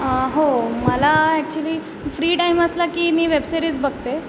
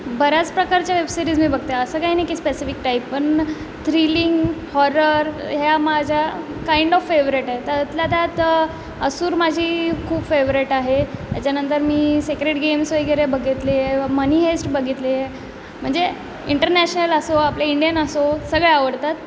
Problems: none marked